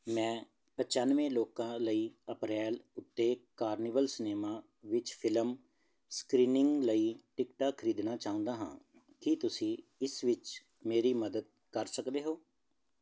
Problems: none marked